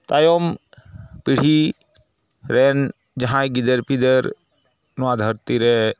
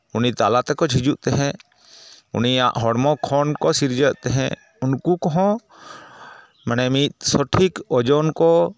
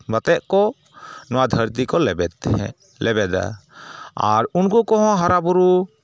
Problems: none marked